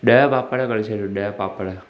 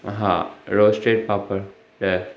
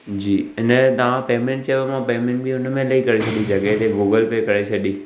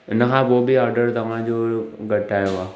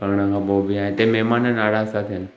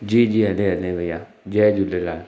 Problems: background sounds at intervals